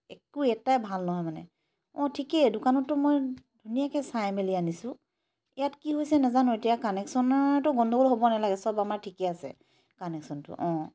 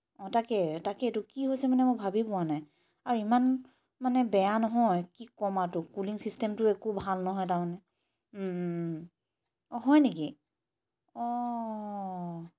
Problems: background sounds at intervals